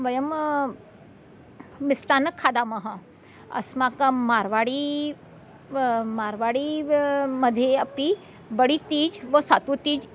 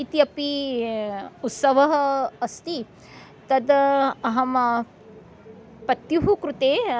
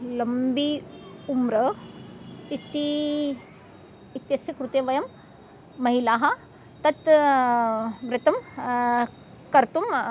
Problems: background sounds at intervals